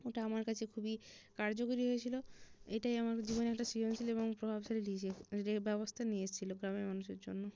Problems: none marked